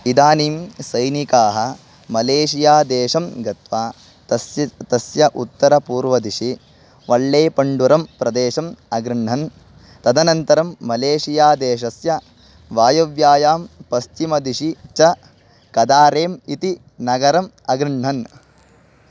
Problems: constant background noise